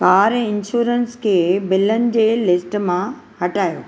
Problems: none marked